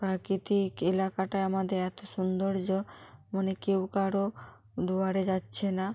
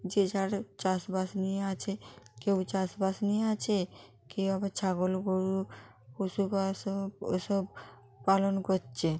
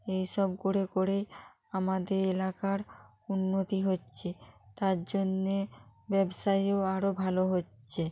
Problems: background sounds at intervals